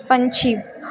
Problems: background sounds at intervals